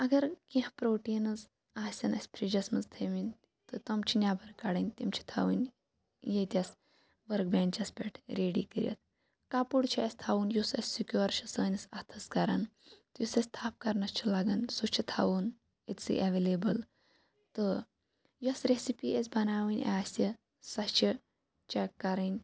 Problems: background sounds at intervals, low volume